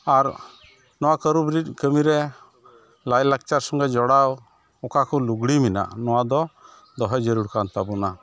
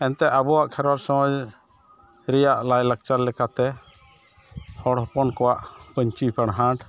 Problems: none marked